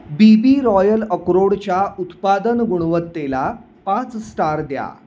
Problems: constant background noise